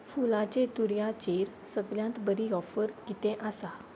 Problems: background sounds at intervals